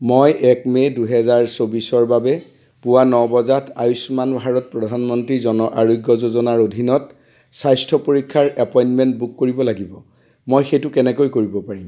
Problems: constant background noise